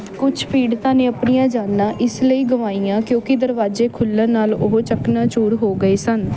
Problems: background conversations at intervals